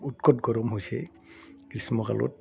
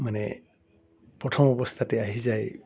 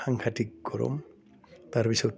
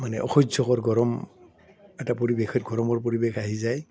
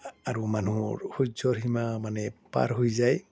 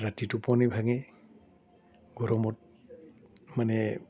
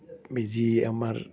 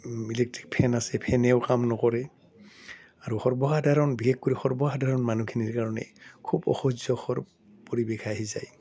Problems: none marked